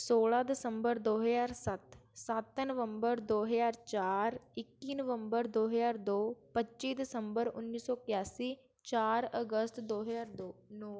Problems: background sounds at intervals